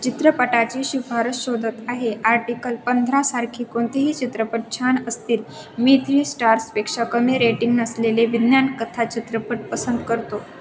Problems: constant background noise, continuous background conversations, echo